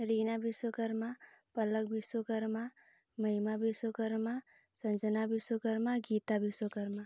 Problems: low volume